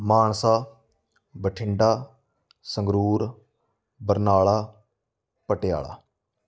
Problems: none marked